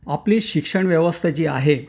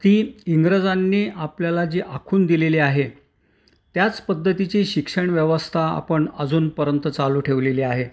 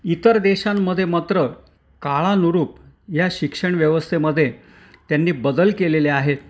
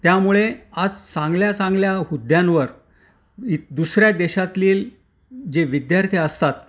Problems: background sounds at intervals